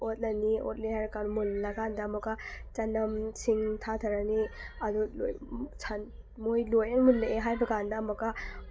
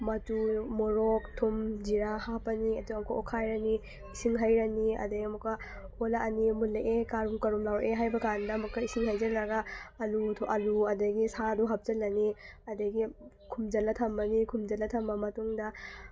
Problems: background sounds at intervals